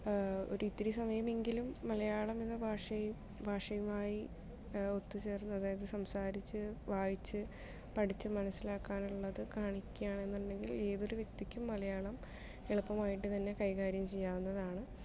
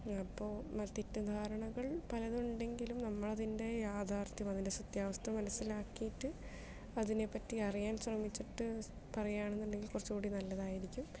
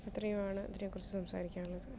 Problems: none marked